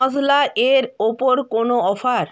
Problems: none marked